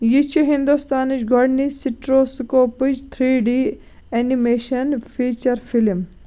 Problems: constant background noise